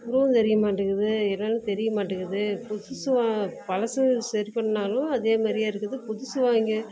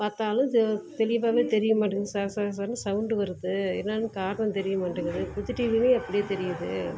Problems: constant background noise